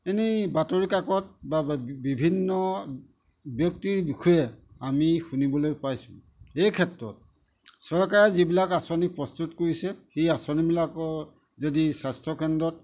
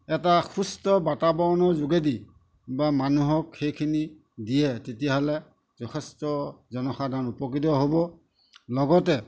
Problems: none marked